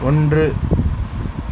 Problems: constant background noise